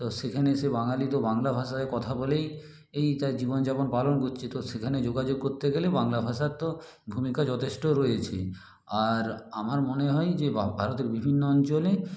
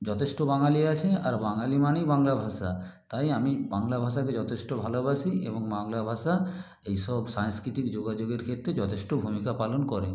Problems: none marked